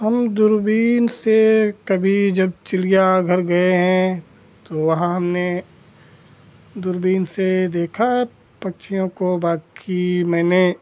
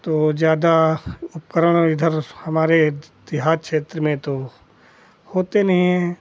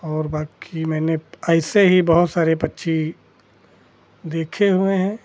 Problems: constant background noise